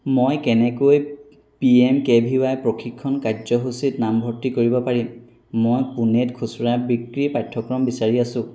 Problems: constant background noise